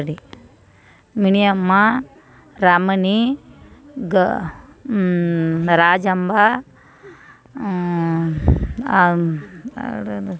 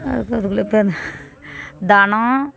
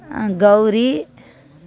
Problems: background conversations at intervals